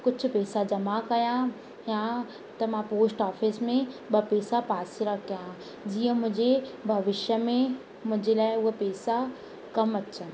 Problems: constant background noise, echo